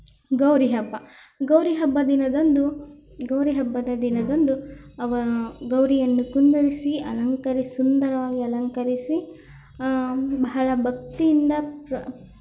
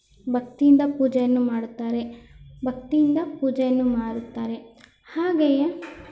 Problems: background sounds at intervals